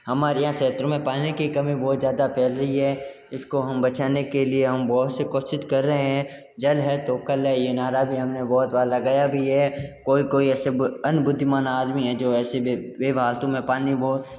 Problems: background sounds at intervals